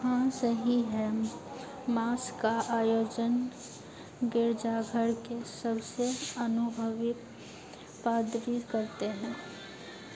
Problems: constant background noise